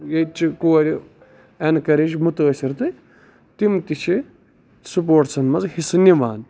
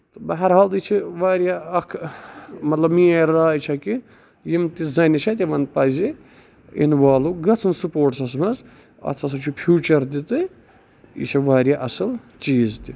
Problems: none marked